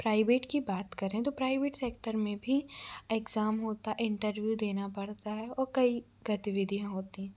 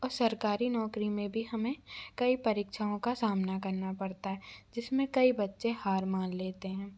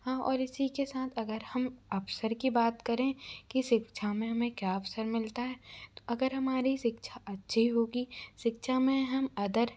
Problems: background sounds at intervals